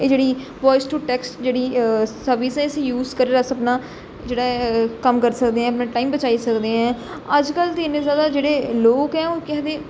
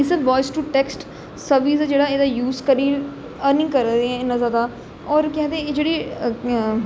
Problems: echo